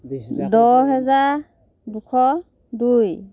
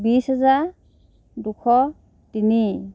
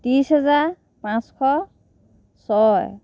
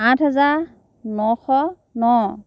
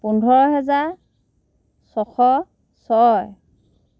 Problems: background sounds at intervals